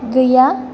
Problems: none marked